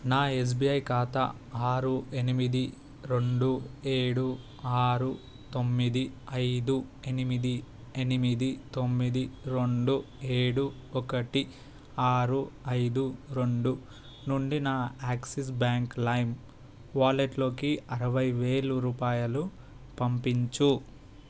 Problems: none marked